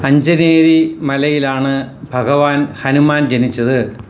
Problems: constant background noise